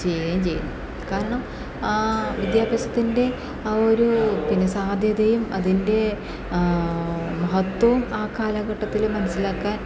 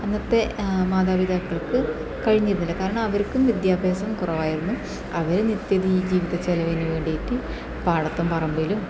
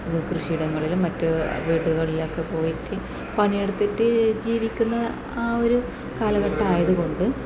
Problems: background sounds at intervals